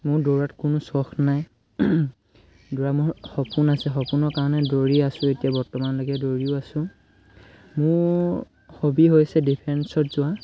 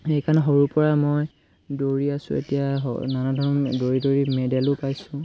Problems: constant background noise, background conversations at intervals